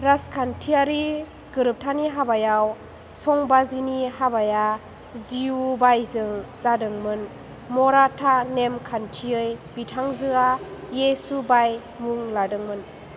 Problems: constant background noise